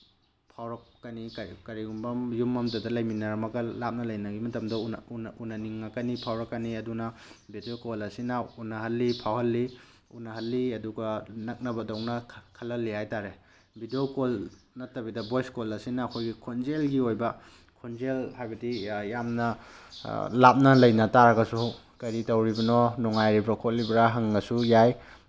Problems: background sounds at intervals